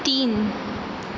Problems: constant background noise